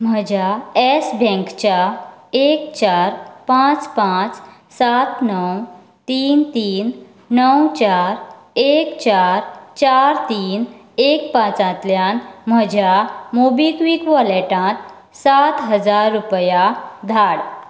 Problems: constant background noise